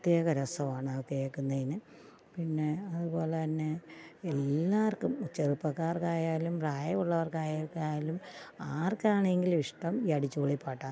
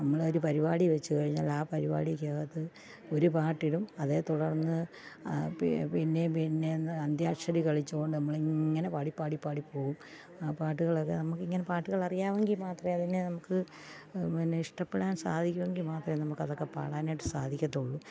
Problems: background sounds at intervals, low volume